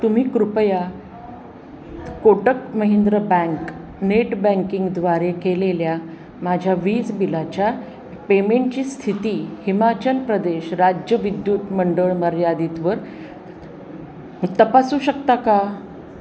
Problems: none marked